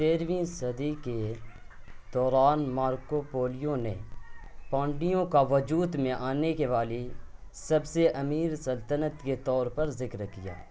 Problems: constant background noise